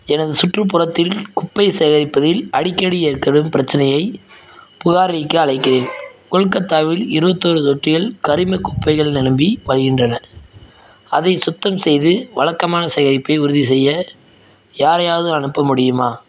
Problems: background sounds at intervals